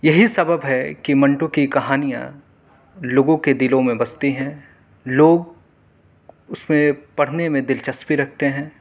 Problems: none marked